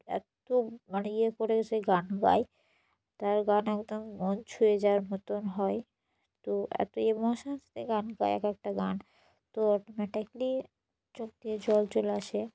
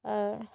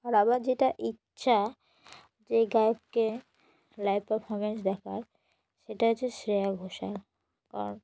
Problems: none marked